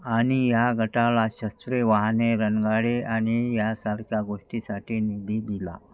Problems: background sounds at intervals